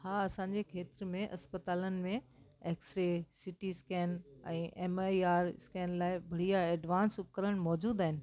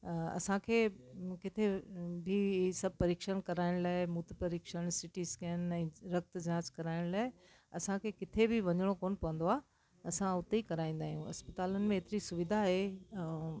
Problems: constant background noise